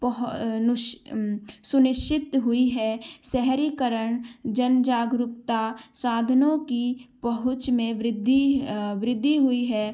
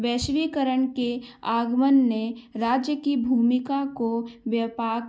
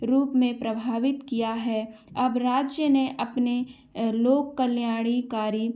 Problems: background sounds at intervals